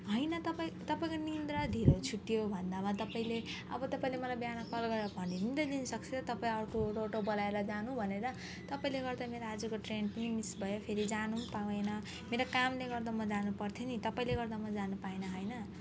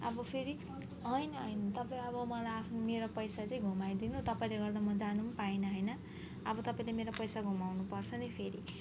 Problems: background sounds at intervals